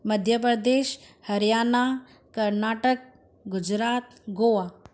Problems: constant background noise